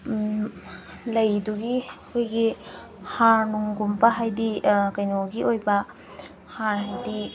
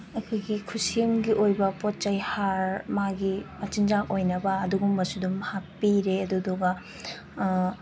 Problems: background sounds at intervals